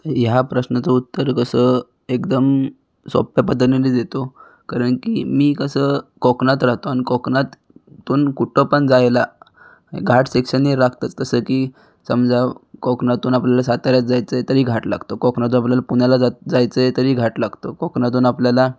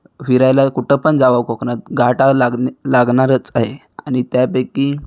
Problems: background sounds at intervals